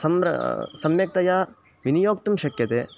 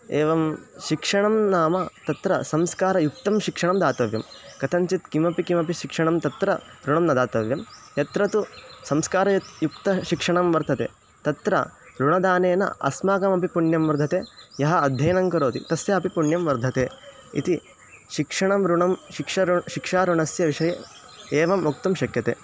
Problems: constant background noise